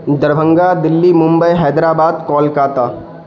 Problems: constant background noise